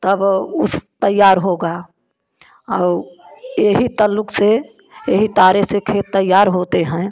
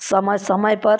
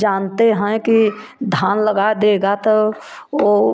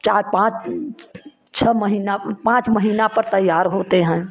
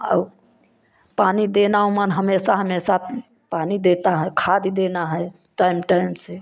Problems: constant background noise, background conversations at intervals